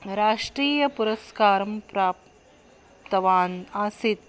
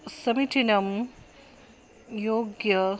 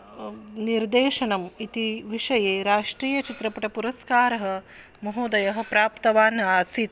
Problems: constant background noise